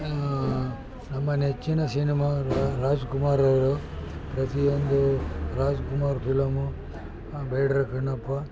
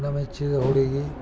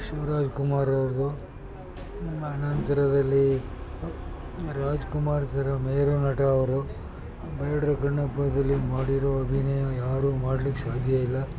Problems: constant background noise, background conversations at intervals